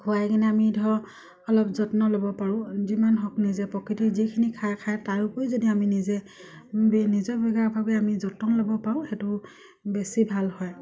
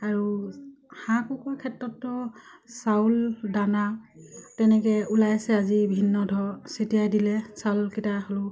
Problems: none marked